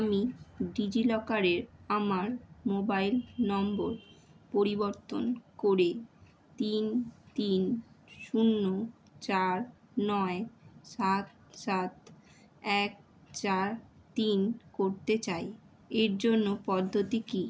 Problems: constant background noise